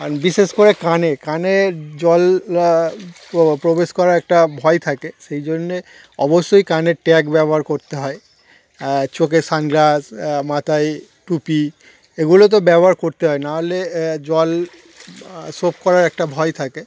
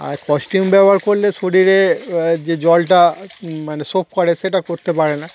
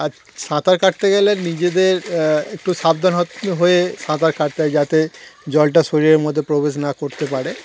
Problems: constant background noise